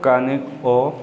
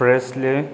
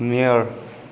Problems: background sounds at intervals